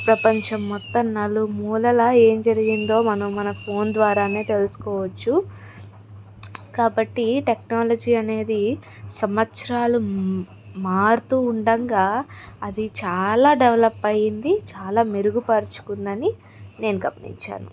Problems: constant background noise